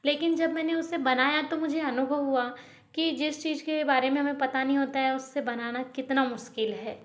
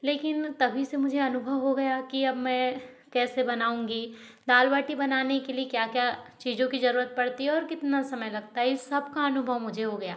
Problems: none marked